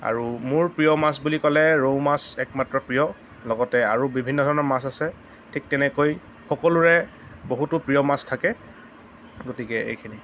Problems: none marked